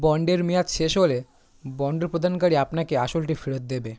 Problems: none marked